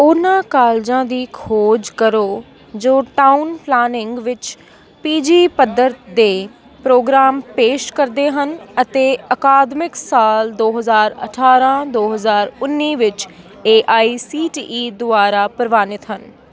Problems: background sounds at intervals, continuous background conversations